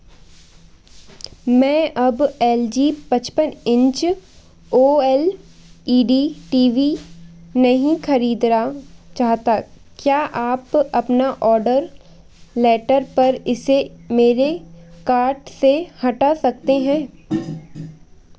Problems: constant background noise